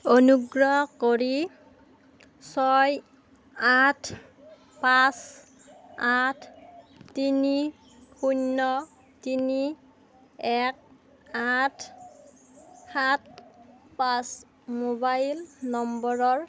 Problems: constant background noise